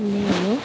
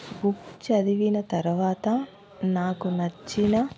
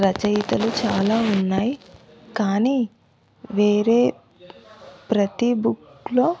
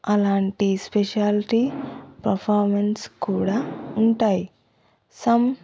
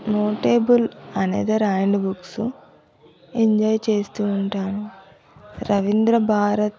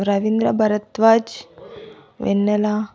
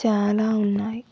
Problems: none marked